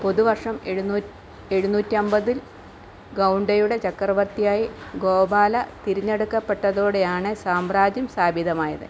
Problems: constant background noise